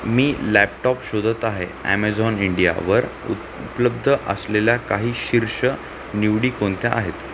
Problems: constant background noise